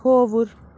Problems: background sounds at intervals